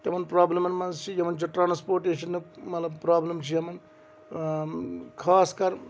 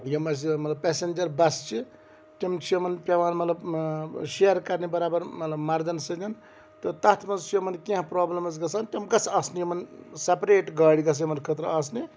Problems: none marked